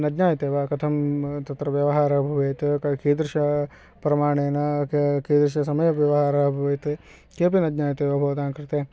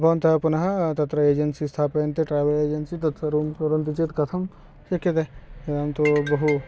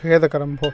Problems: background sounds at intervals